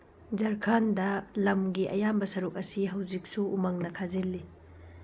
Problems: background sounds at intervals